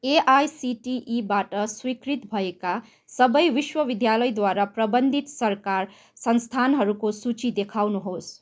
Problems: none marked